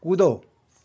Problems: none marked